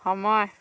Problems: none marked